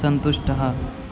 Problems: constant background noise